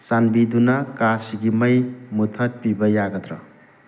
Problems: constant background noise